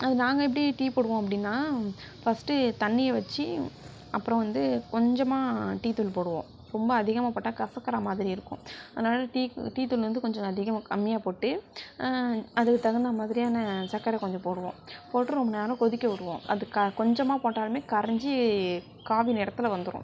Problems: none marked